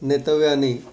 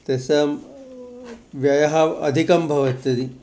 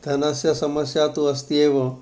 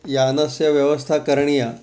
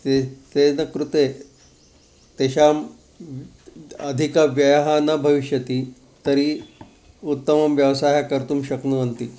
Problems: constant background noise